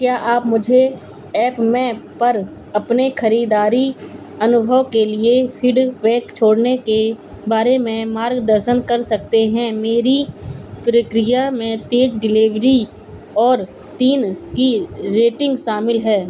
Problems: none marked